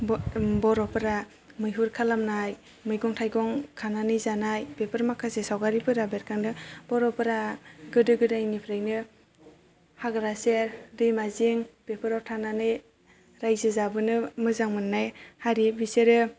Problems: none marked